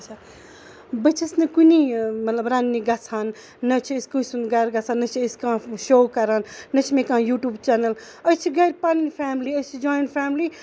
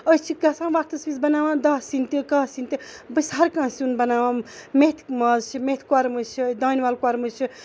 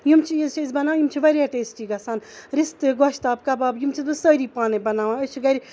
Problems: none marked